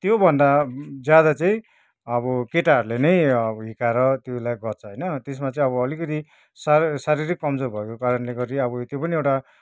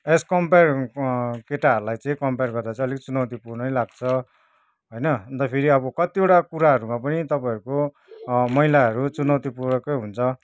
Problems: none marked